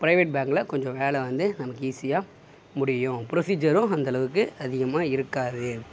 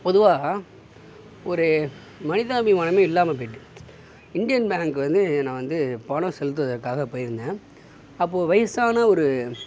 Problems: background sounds at intervals